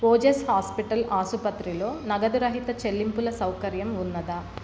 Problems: constant background noise